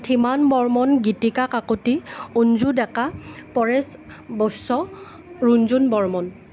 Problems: none marked